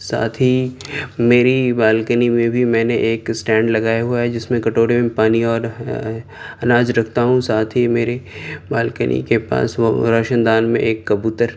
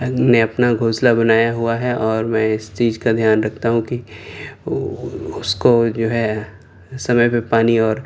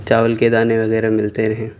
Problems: none marked